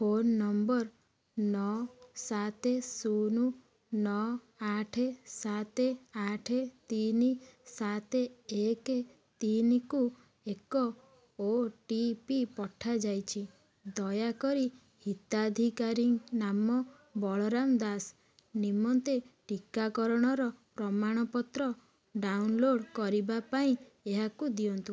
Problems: none marked